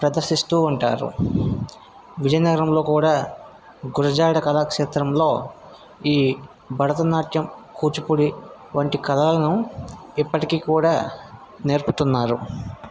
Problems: constant background noise